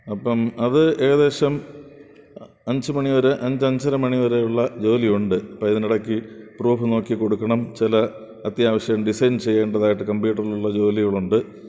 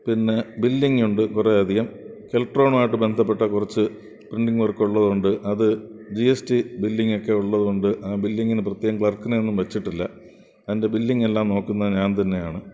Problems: background sounds at intervals